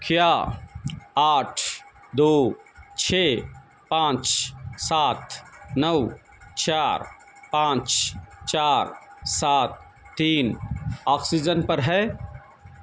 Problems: none marked